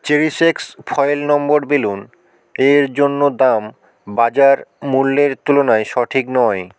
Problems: background sounds at intervals